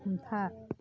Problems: low volume